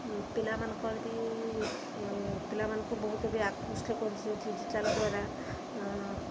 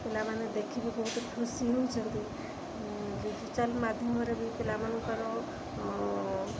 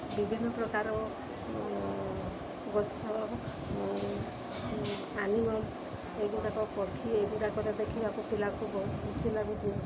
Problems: constant background noise, continuous background conversations